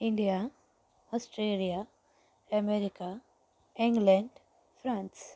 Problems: none marked